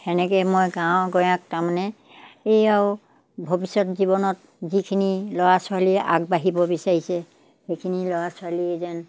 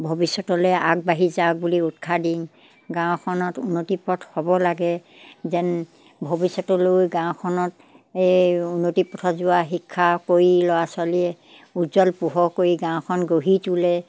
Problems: background sounds at intervals